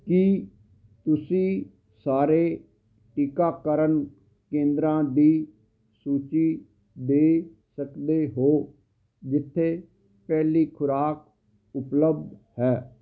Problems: none marked